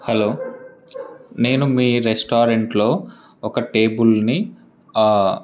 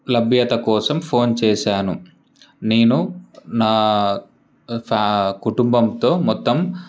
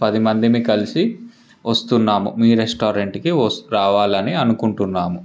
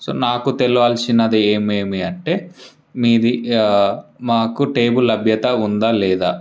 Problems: constant background noise